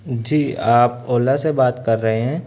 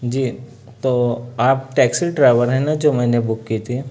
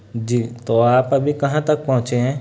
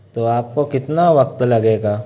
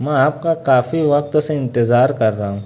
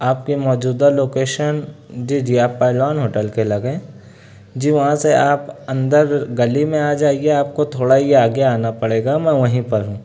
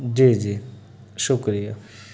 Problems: none marked